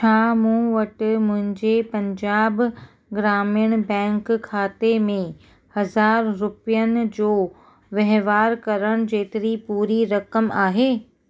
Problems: none marked